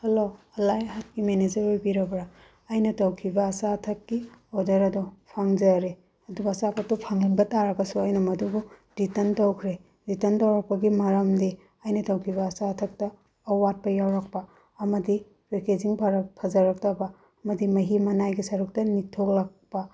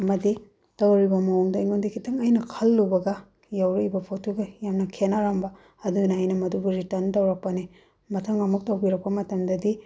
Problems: background sounds at intervals